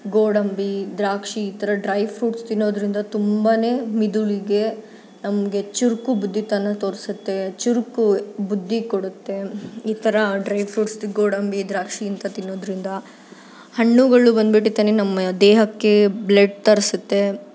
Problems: none marked